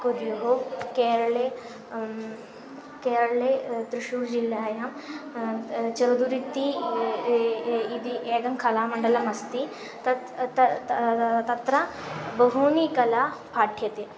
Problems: constant background noise